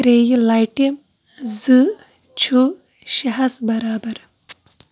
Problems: background sounds at intervals